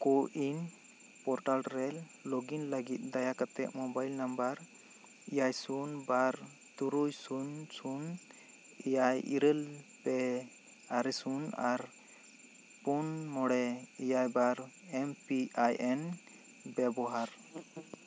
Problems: constant background noise